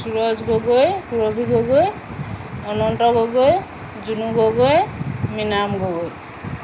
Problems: constant background noise